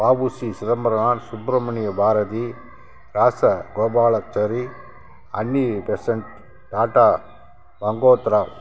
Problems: constant background noise